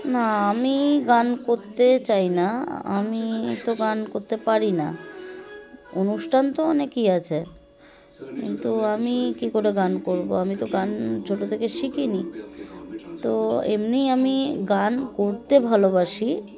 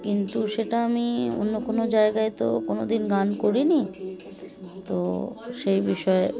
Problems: constant background noise, continuous background conversations